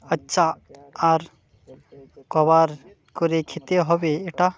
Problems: constant background noise